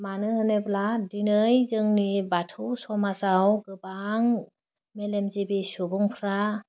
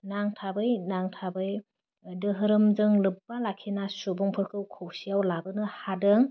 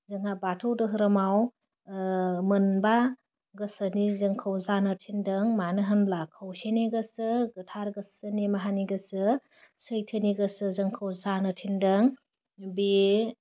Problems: none marked